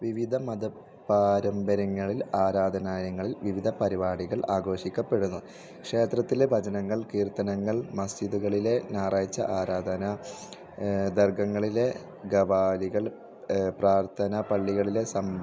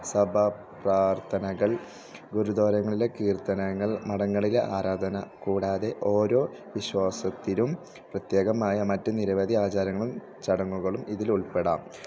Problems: low volume